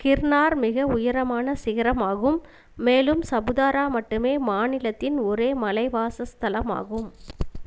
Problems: constant background noise